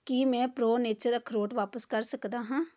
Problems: background conversations at intervals